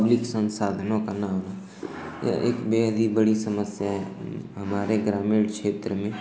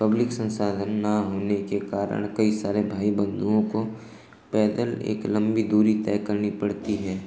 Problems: constant background noise